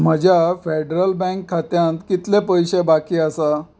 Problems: background sounds at intervals